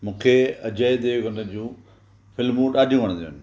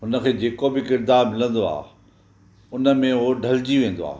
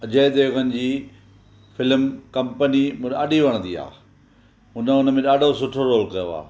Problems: none marked